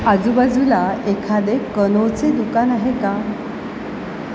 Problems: constant background noise